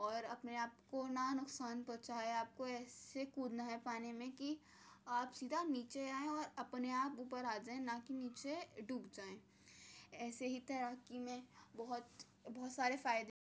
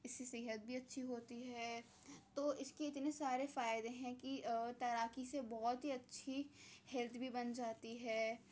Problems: low volume